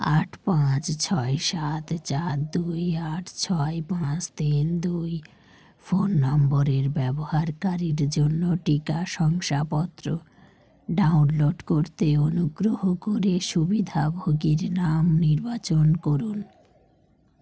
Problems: constant background noise